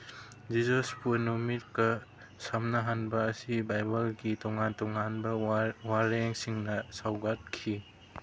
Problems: none marked